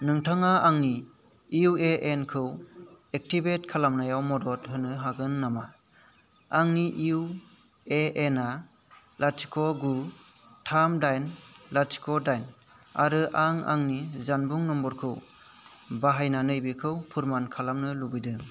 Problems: constant background noise